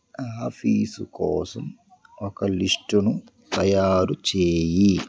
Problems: background sounds at intervals